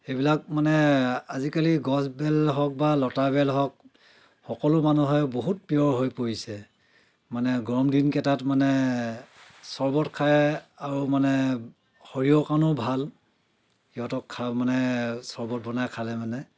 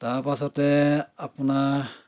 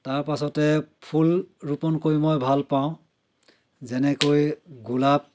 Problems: constant background noise, background conversations at intervals